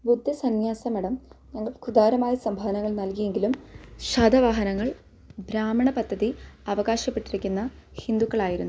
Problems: low volume